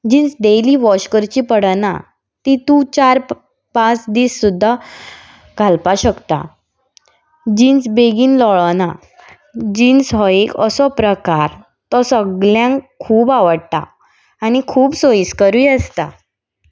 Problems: none marked